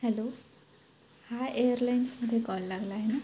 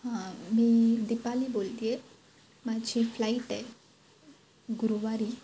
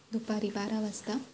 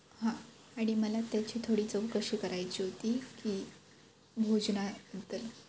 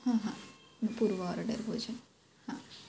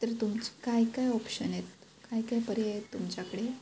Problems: none marked